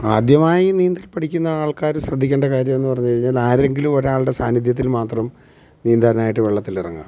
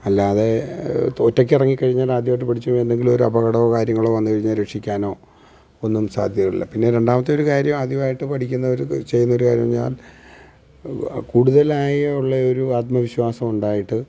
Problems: none marked